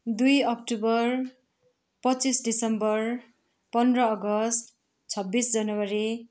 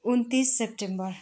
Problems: none marked